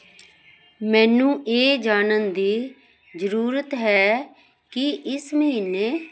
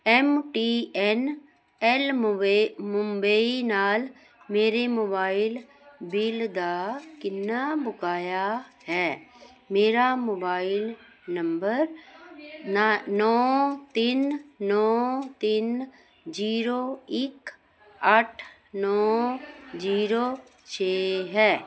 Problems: background sounds at intervals